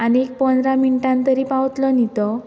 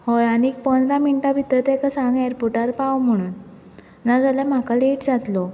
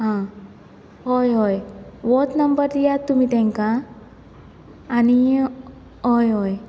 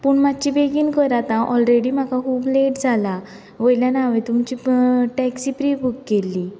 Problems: constant background noise